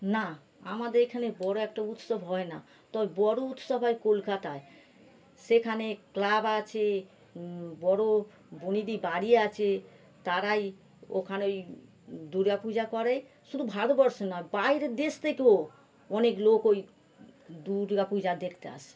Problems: none marked